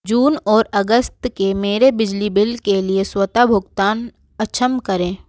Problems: background sounds at intervals